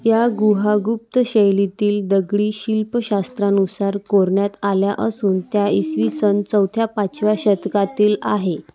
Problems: none marked